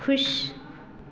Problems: constant background noise